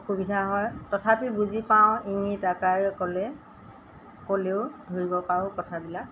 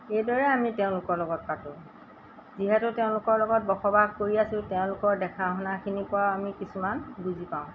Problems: none marked